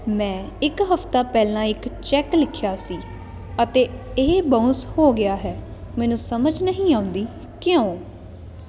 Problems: none marked